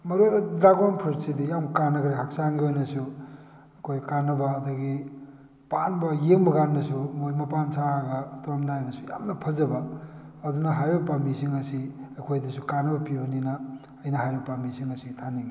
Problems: none marked